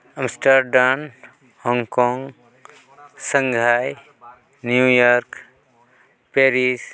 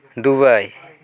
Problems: continuous background conversations